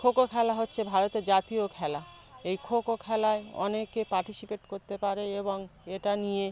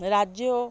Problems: background sounds at intervals, background conversations at intervals